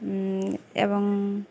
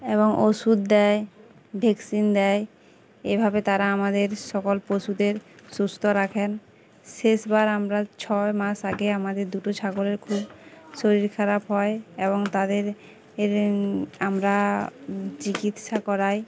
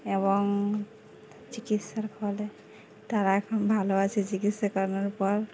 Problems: constant background noise, continuous background conversations